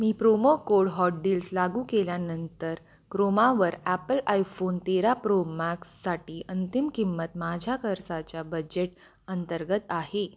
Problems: constant background noise